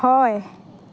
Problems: background conversations at intervals